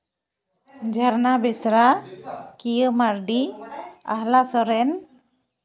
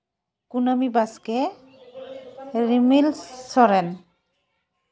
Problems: background sounds at intervals, background conversations at intervals